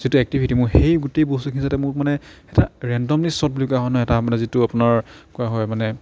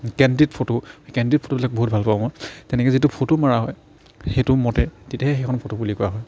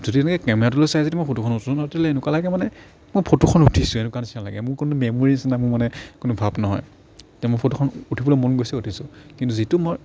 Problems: none marked